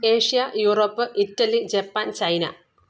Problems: none marked